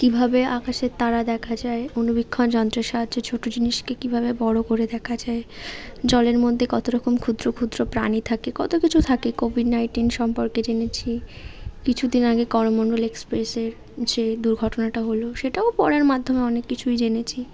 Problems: none marked